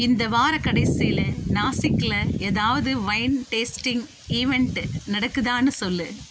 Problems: constant background noise